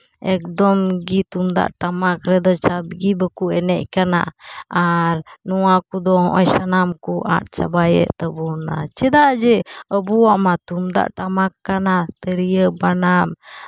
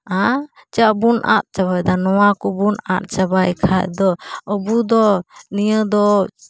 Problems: background sounds at intervals